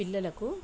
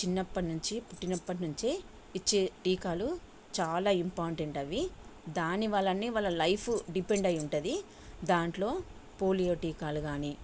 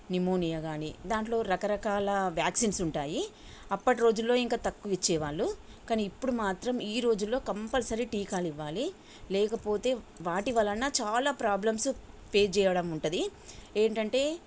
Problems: constant background noise